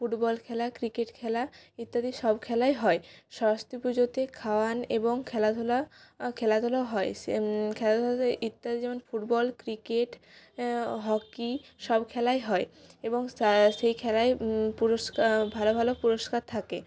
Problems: constant background noise